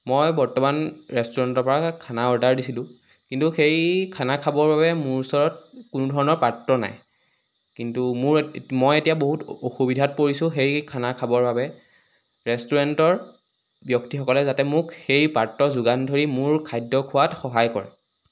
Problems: constant background noise